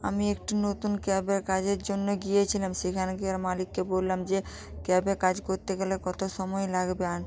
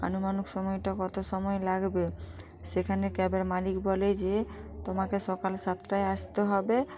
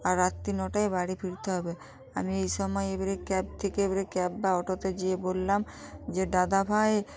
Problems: constant background noise, continuous background conversations